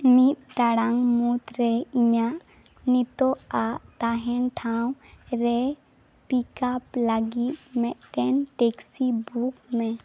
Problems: none marked